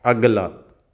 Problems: none marked